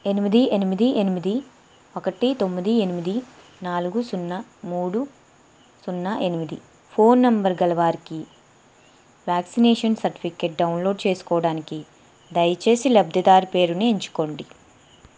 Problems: constant background noise